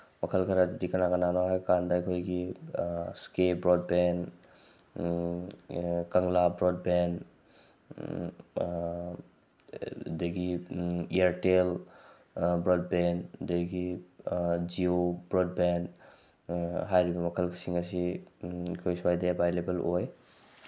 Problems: none marked